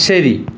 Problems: none marked